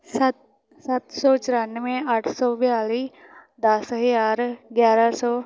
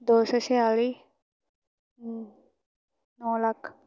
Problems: constant background noise